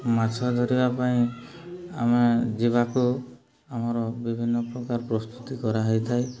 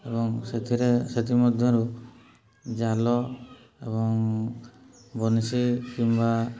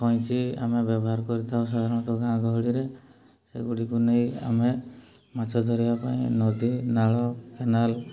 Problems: low volume